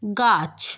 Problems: constant background noise